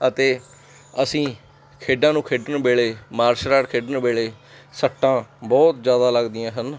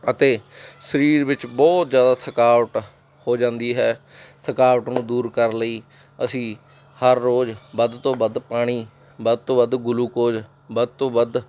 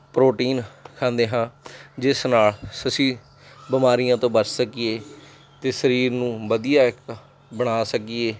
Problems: constant background noise